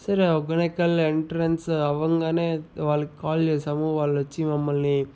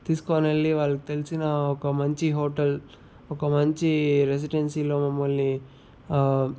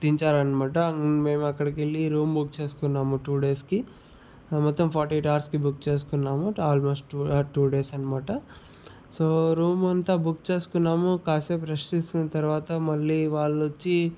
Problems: none marked